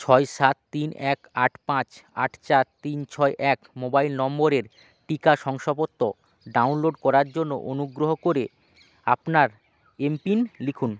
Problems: constant background noise